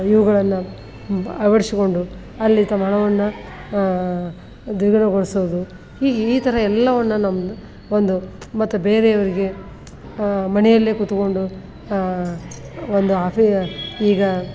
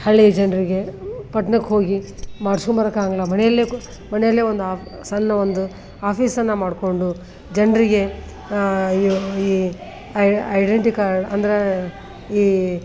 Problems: none marked